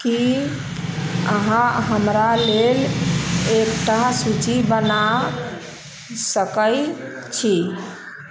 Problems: none marked